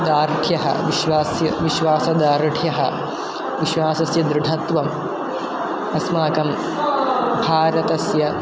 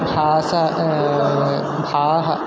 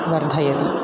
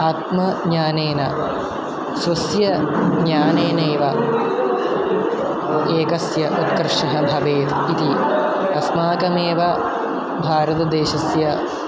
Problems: constant background noise